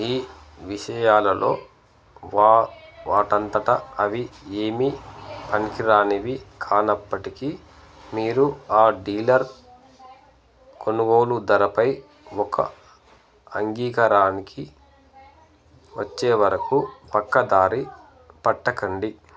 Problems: none marked